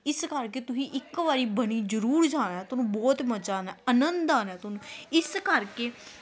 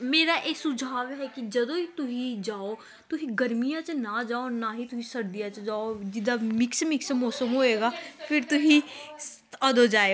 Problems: continuous background conversations